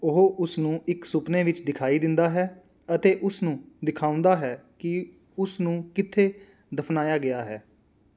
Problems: none marked